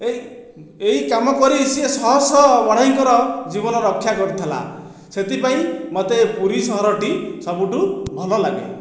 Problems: none marked